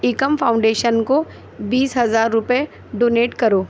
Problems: constant background noise